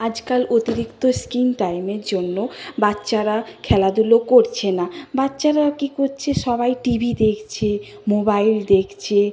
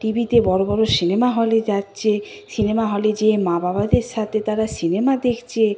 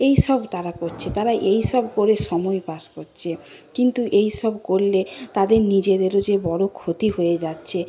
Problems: constant background noise, background conversations at intervals